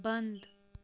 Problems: low volume